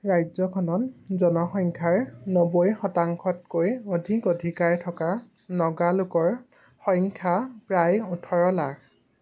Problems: constant background noise